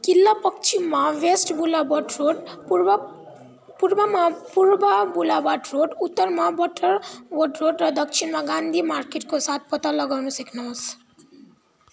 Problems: none marked